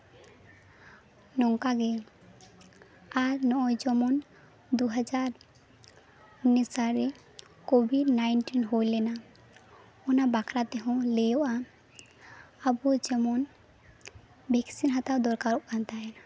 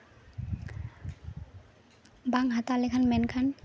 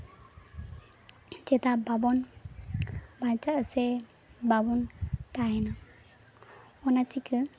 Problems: constant background noise